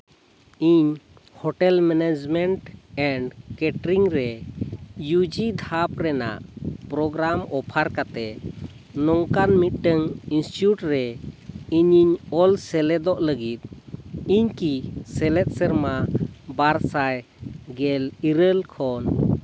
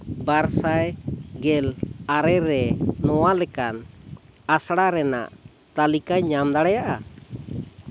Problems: background sounds at intervals